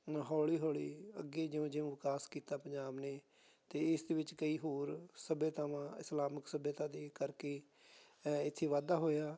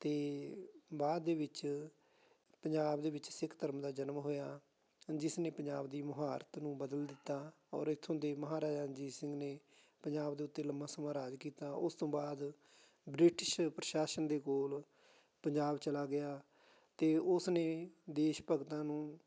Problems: none marked